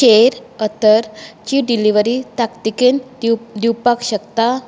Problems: constant background noise